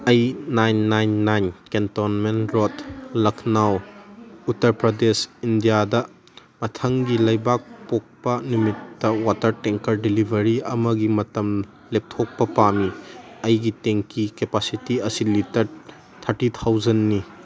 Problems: background conversations at intervals